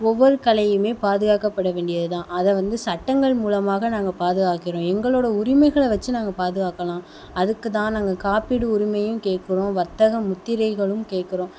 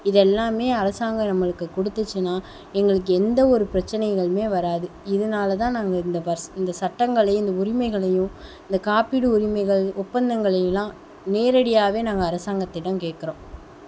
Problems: constant background noise